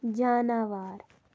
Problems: none marked